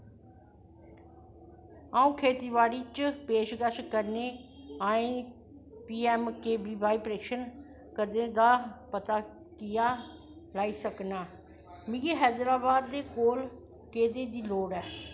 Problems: constant background noise